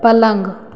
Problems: none marked